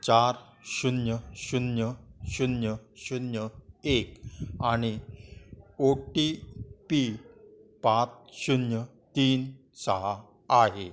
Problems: background sounds at intervals, continuous background conversations